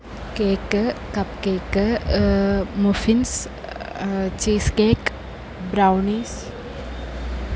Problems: none marked